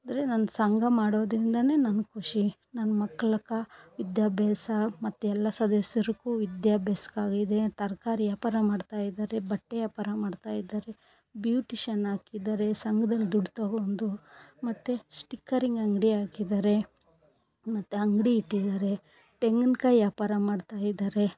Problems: none marked